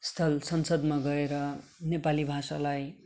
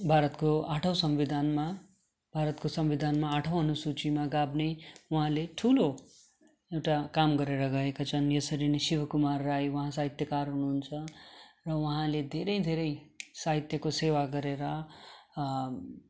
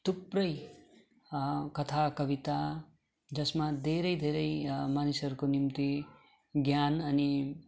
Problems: none marked